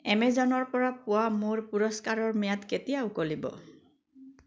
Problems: none marked